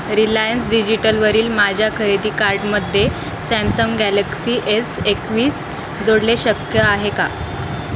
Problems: constant background noise